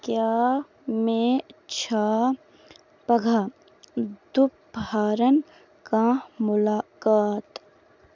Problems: none marked